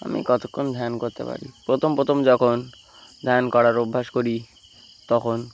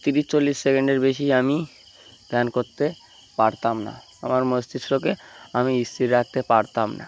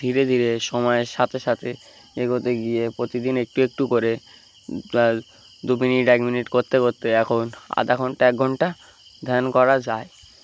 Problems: constant background noise